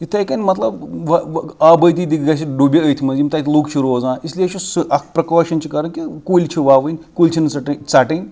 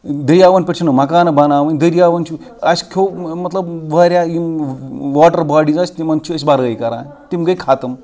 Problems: background sounds at intervals